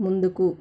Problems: constant background noise